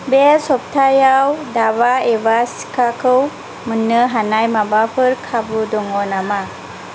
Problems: none marked